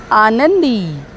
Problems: none marked